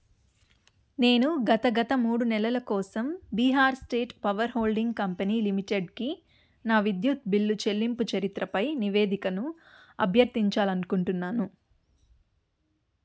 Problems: none marked